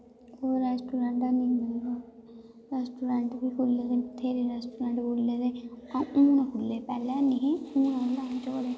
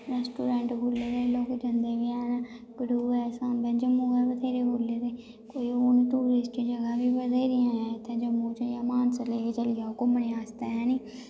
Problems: constant background noise, echo